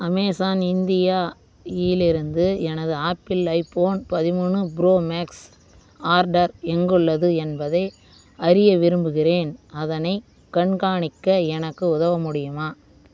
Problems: none marked